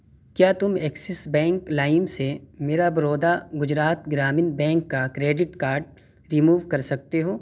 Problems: constant background noise